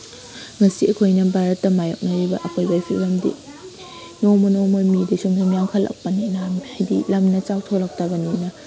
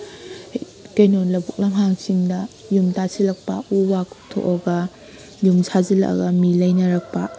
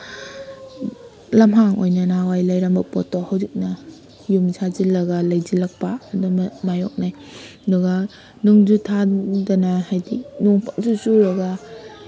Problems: background conversations at intervals